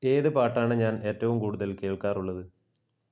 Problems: low volume